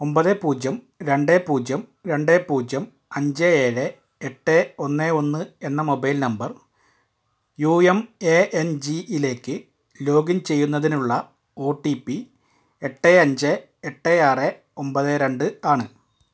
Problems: none marked